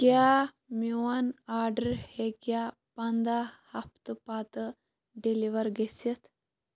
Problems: background sounds at intervals, background conversations at intervals